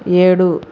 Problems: constant background noise